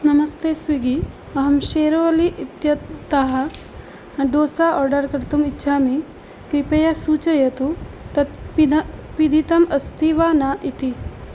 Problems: constant background noise